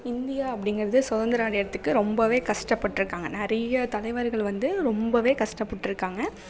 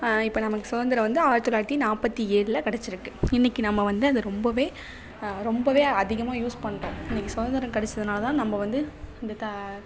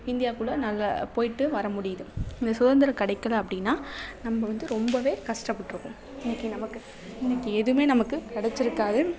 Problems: none marked